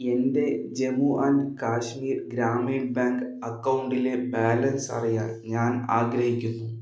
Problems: echo